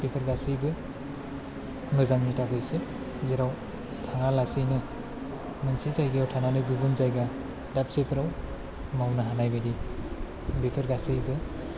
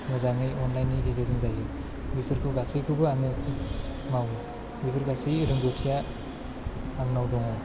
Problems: low volume